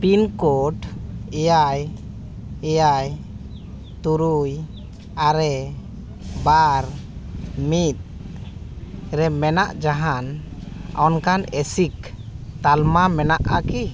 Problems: background sounds at intervals